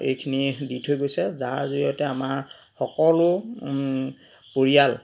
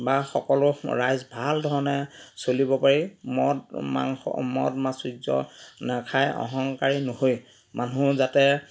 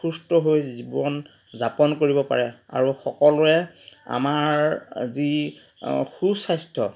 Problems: background sounds at intervals, background conversations at intervals